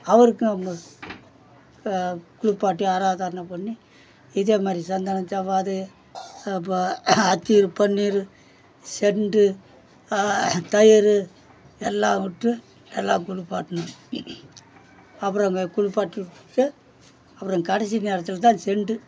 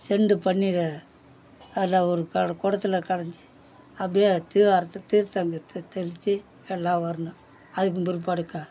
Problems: background sounds at intervals, background conversations at intervals